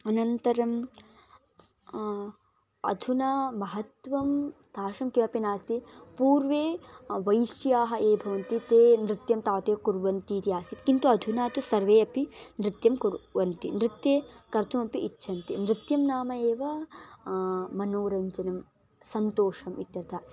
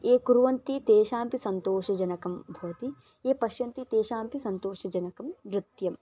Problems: background sounds at intervals